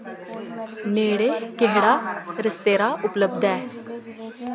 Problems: constant background noise, background conversations at intervals